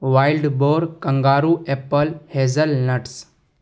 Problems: none marked